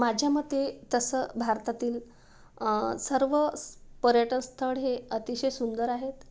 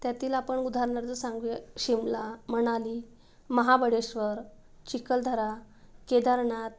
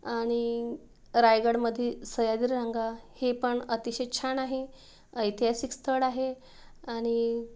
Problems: none marked